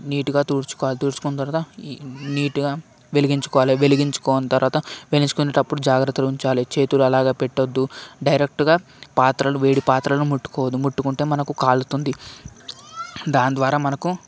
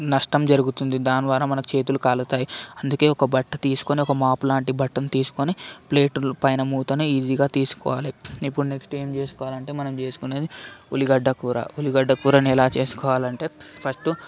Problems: constant background noise, background conversations at intervals